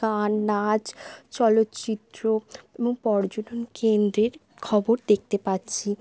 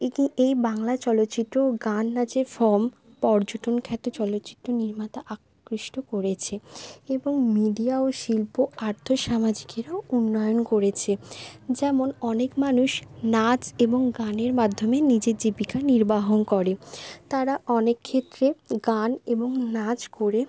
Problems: none marked